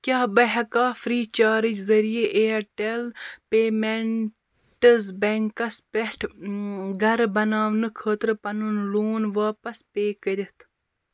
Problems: constant background noise